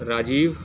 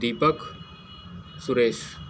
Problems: constant background noise